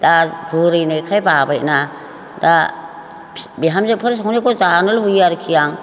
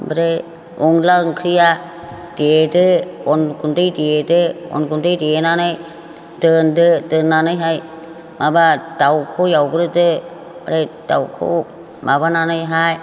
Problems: none marked